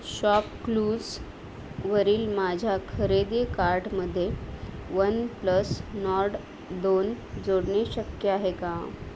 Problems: constant background noise